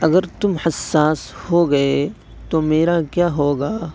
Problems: none marked